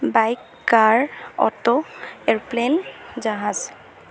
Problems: constant background noise